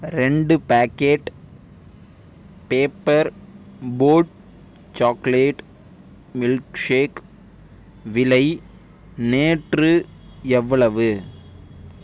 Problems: none marked